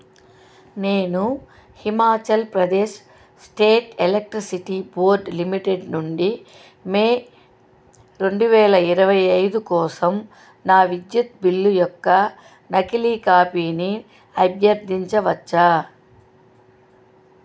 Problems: none marked